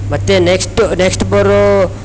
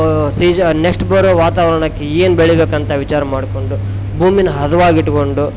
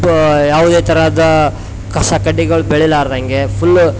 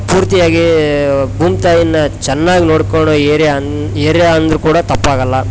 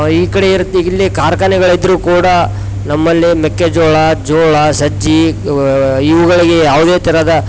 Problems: none marked